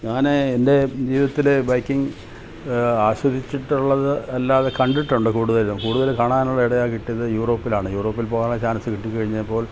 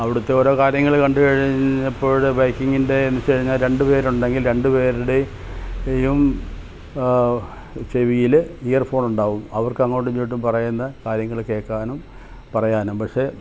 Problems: none marked